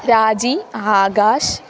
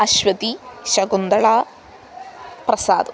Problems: constant background noise